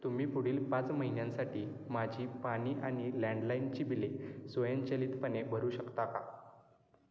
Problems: none marked